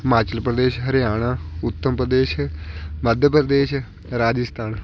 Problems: none marked